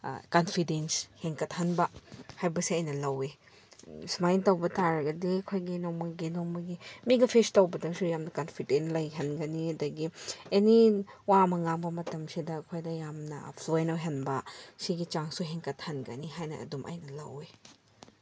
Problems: none marked